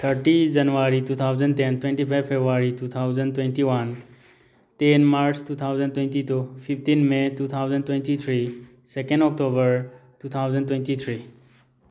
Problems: none marked